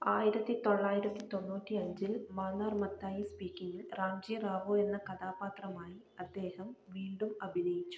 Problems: low volume